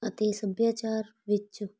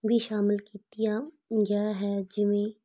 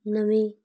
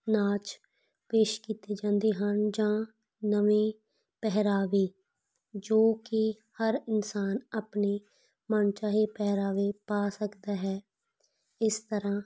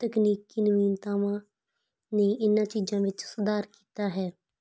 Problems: background sounds at intervals